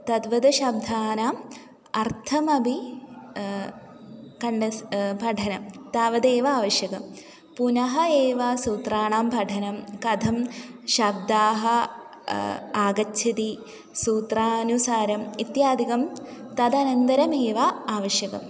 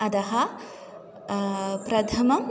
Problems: background conversations at intervals